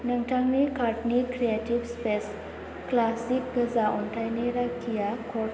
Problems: low volume